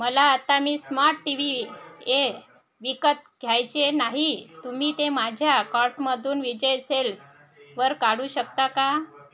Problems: constant background noise